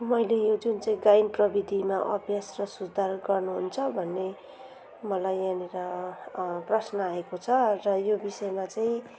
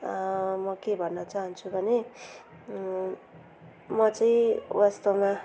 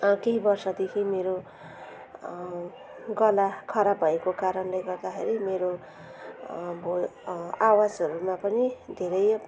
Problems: none marked